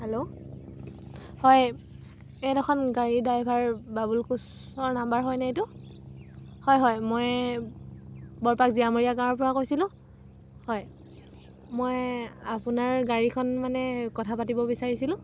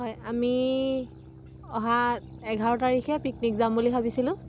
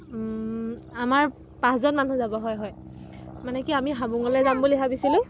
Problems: constant background noise, background conversations at intervals